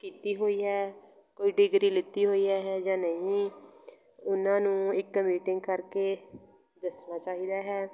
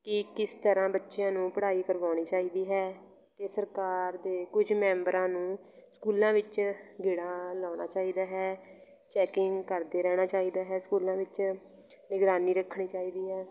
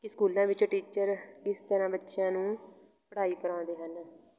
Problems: continuous background conversations